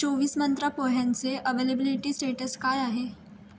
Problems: background sounds at intervals